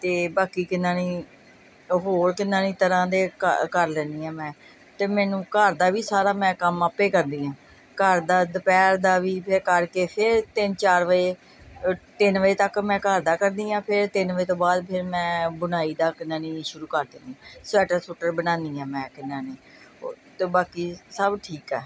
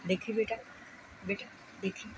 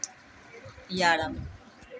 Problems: background conversations at intervals